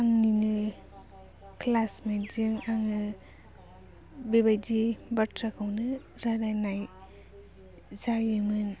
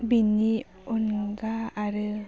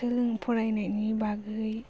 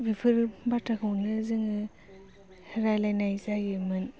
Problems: low volume